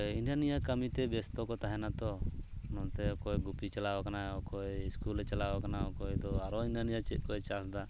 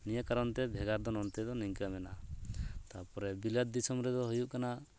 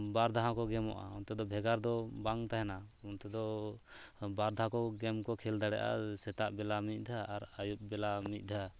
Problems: background sounds at intervals